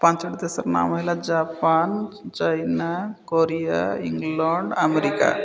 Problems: constant background noise, continuous background conversations